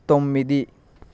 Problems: none marked